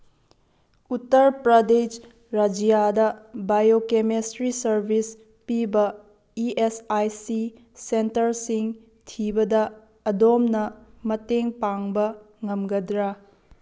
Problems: none marked